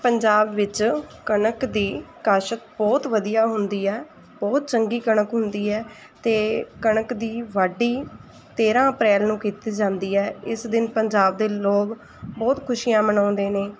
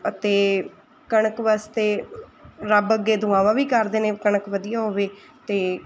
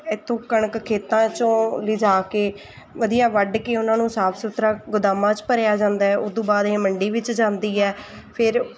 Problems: background sounds at intervals, background conversations at intervals